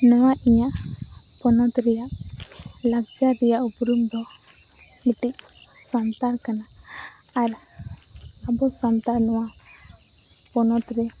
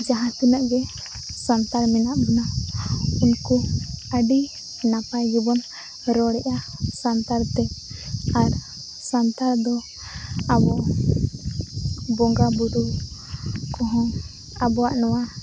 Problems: constant background noise